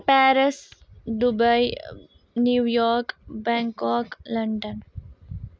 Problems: none marked